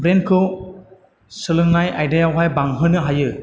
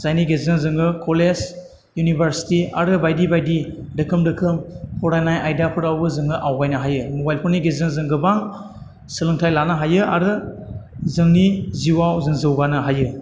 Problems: none marked